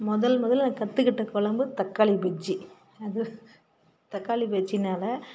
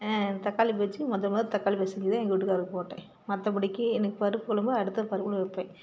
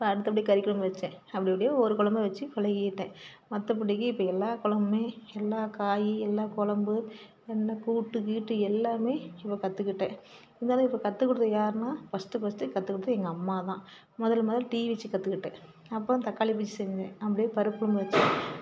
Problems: background sounds at intervals, background conversations at intervals